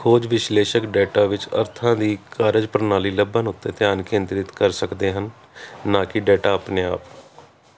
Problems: constant background noise